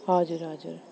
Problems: constant background noise